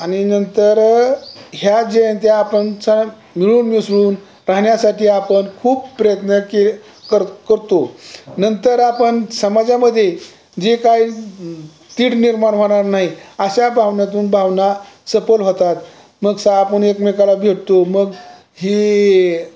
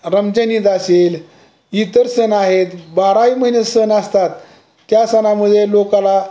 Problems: none marked